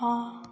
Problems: background sounds at intervals